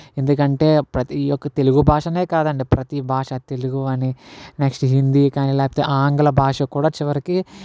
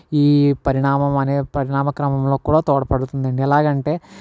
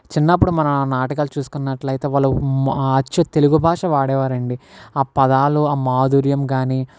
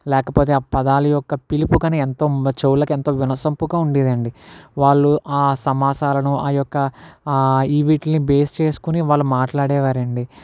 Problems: background sounds at intervals